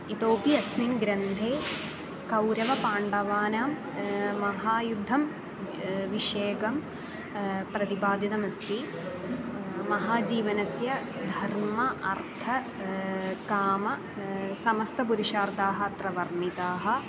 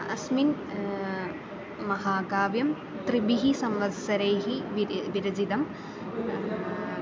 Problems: constant background noise, continuous background conversations